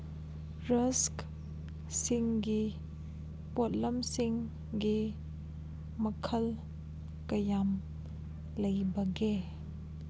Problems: background sounds at intervals